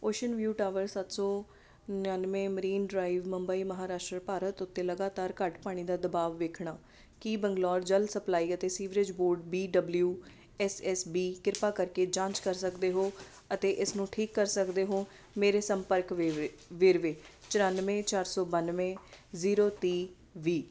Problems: none marked